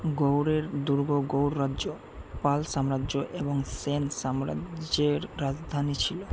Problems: constant background noise